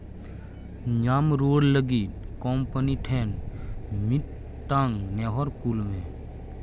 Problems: constant background noise